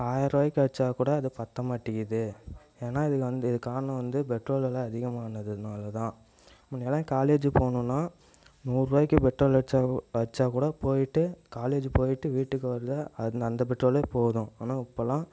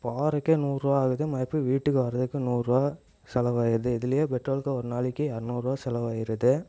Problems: echo